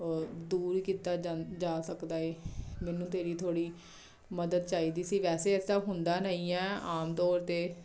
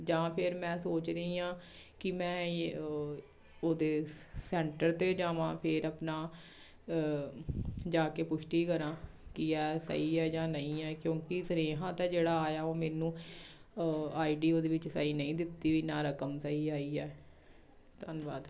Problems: none marked